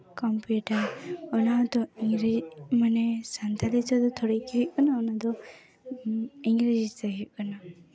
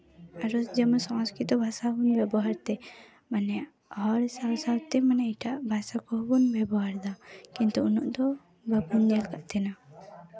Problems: continuous background conversations